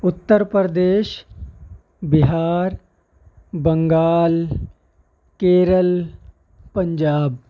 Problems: constant background noise